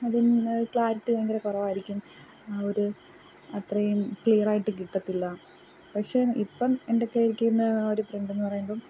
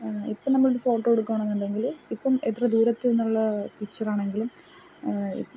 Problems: background sounds at intervals, low volume